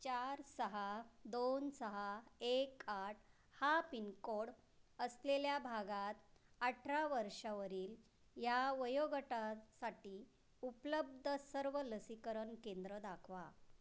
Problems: constant background noise